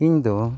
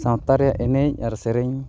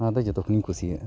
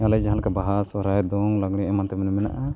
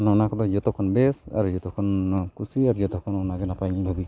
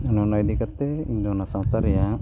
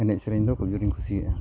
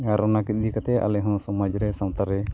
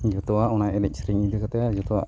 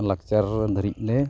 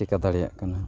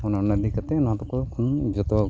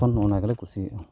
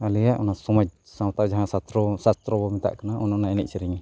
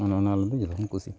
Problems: background sounds at intervals, background conversations at intervals